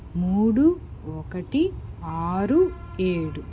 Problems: constant background noise